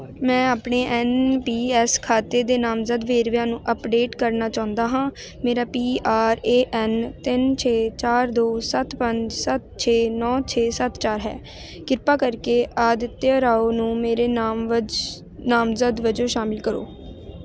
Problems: background conversations at intervals